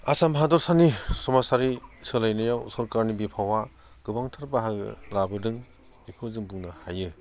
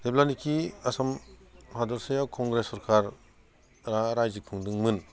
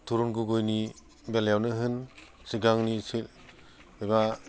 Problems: none marked